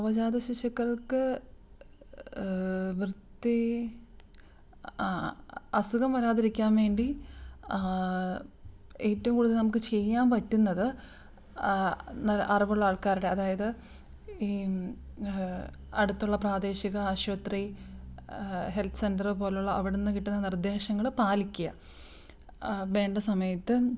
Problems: none marked